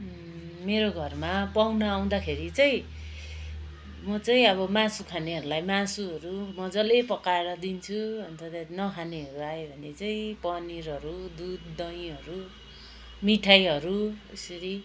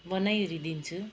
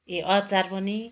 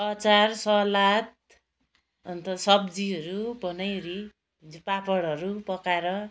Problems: background sounds at intervals